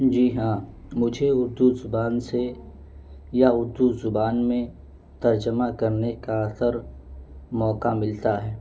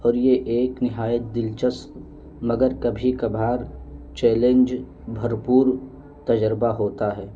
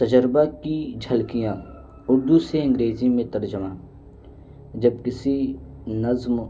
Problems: none marked